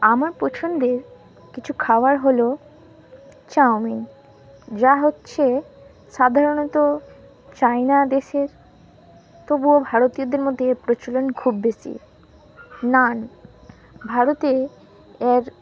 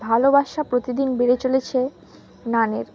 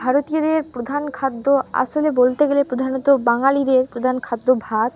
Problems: constant background noise